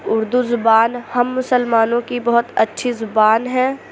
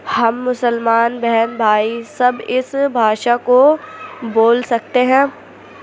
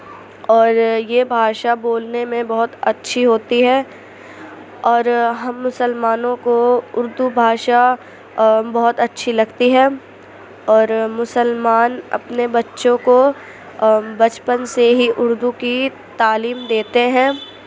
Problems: constant background noise